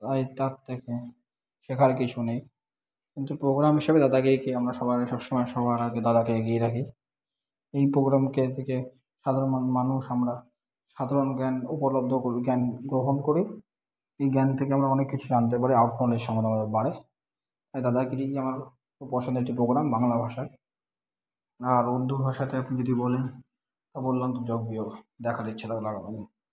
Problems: background sounds at intervals